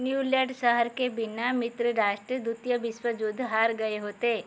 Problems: constant background noise